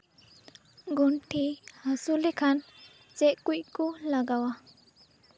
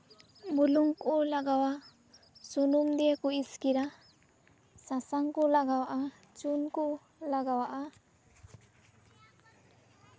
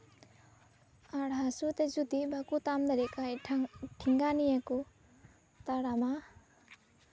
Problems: none marked